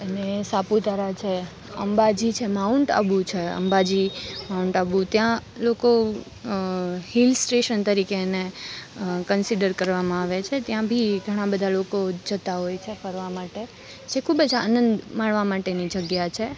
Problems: none marked